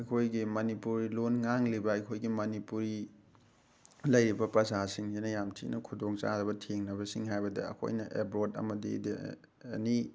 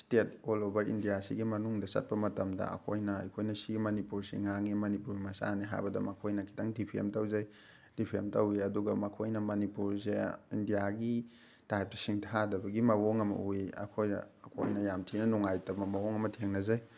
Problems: background sounds at intervals